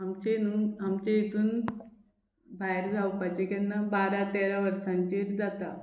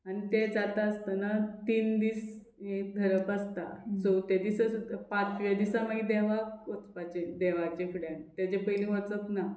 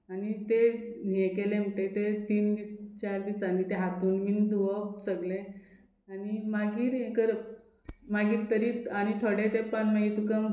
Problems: background sounds at intervals